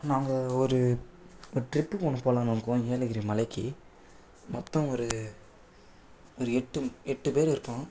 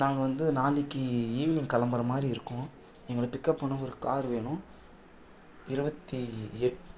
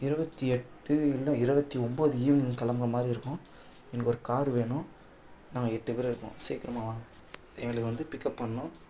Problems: background sounds at intervals